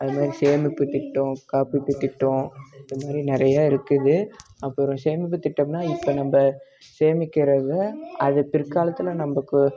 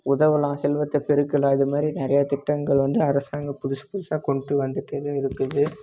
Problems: constant background noise